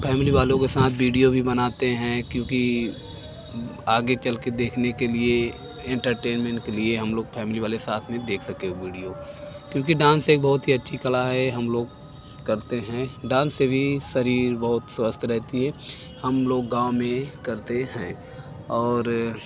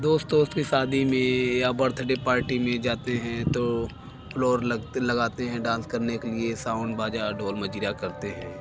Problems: background sounds at intervals